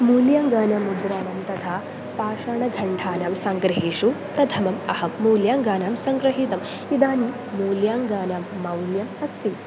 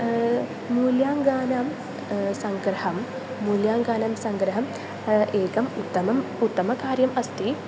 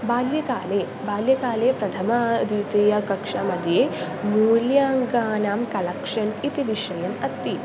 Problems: constant background noise